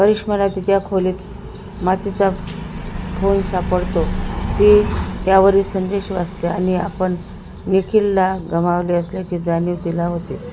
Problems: constant background noise